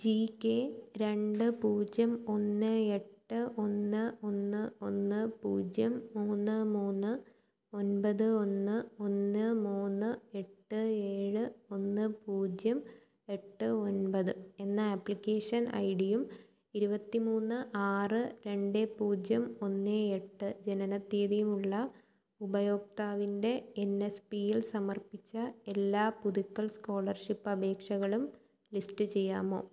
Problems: none marked